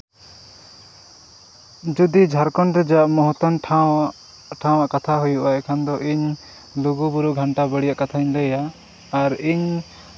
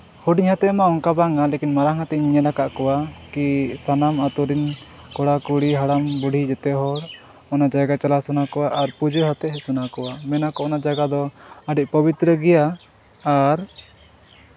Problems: constant background noise, background conversations at intervals